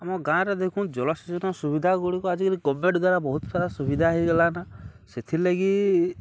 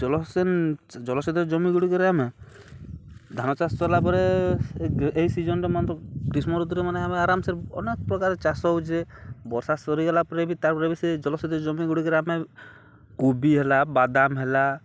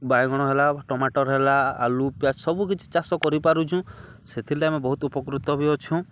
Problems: none marked